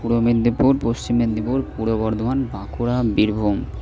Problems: constant background noise